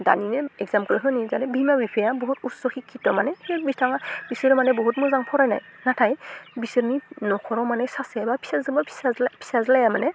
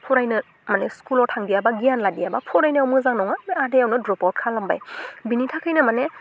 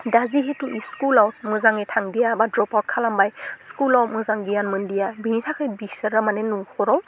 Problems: constant background noise